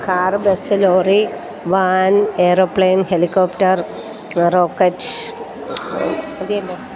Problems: constant background noise